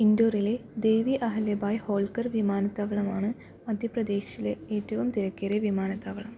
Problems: low volume